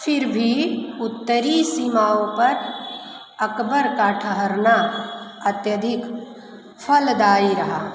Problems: constant background noise